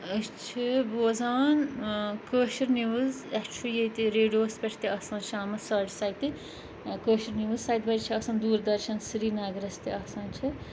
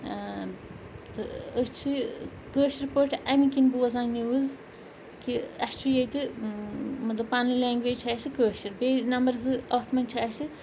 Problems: constant background noise, background conversations at intervals